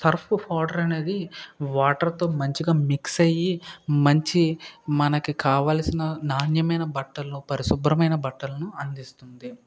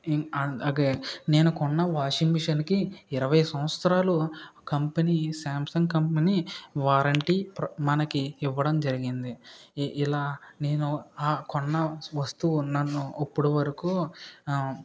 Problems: background sounds at intervals